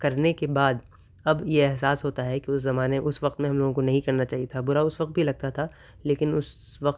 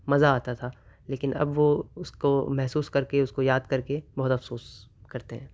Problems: none marked